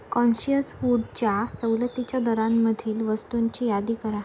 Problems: constant background noise